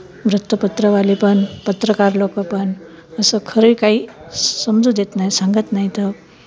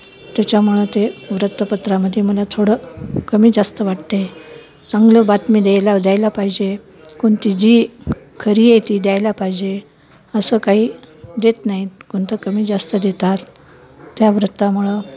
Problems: none marked